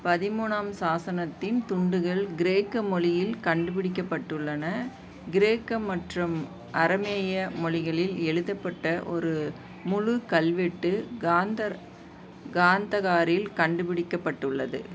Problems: background sounds at intervals